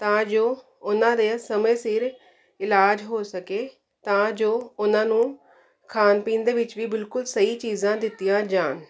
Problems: constant background noise